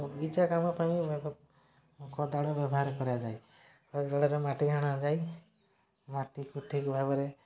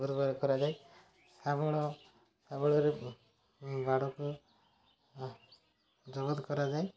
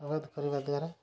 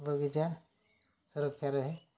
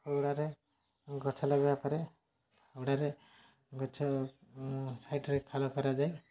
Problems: none marked